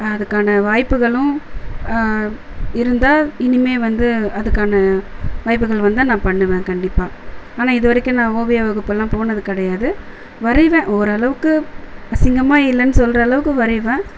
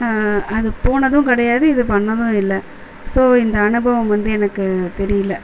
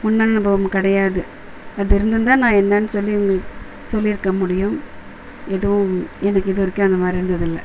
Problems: constant background noise